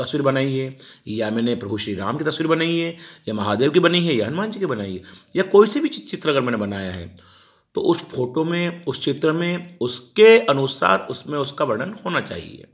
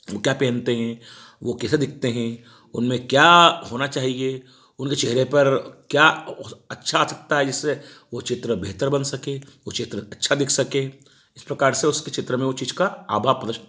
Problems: none marked